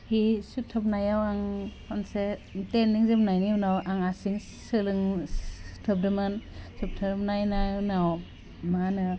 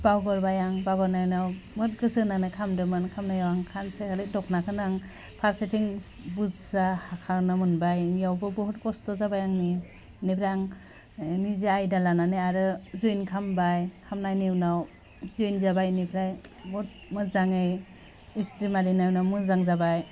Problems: constant background noise